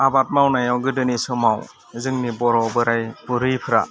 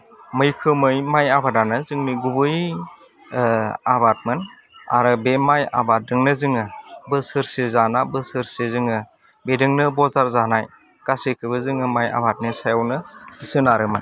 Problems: constant background noise